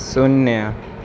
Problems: none marked